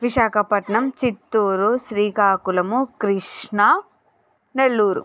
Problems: none marked